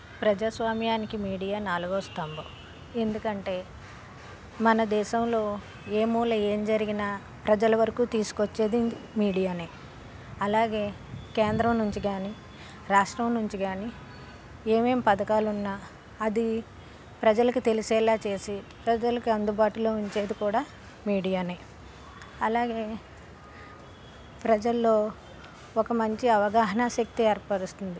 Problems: constant background noise